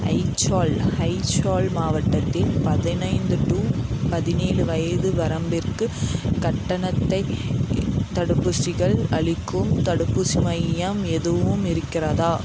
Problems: none marked